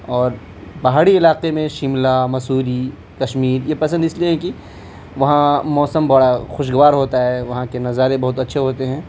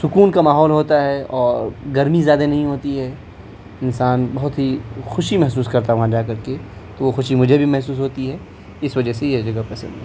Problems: constant background noise